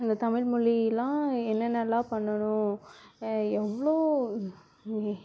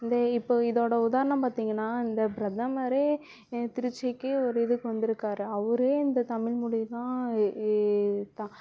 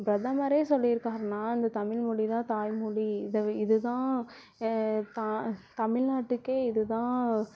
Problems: background sounds at intervals, background conversations at intervals